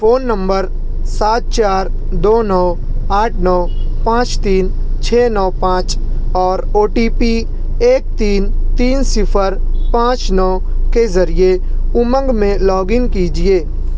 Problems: constant background noise